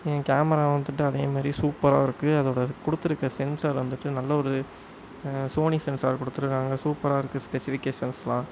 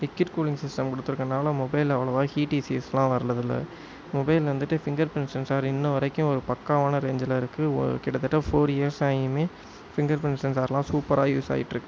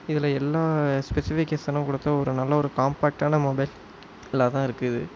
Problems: constant background noise